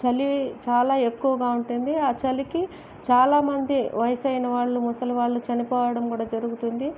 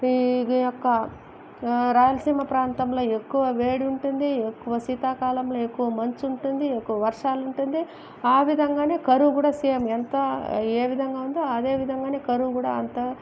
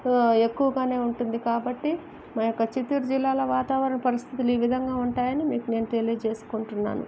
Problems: none marked